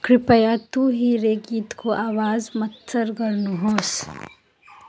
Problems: continuous background conversations